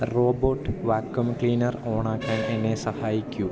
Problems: constant background noise